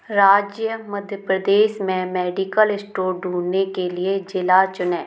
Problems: none marked